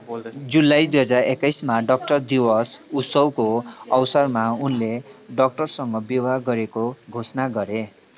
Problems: continuous background conversations